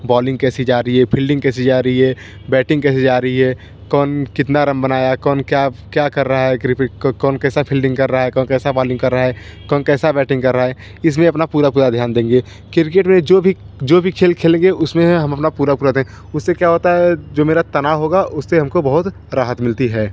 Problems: constant background noise